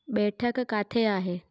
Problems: none marked